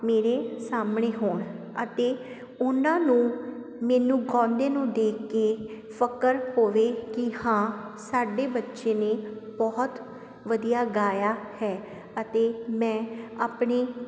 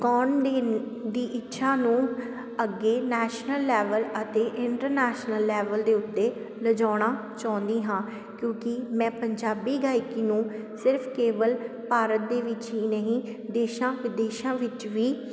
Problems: none marked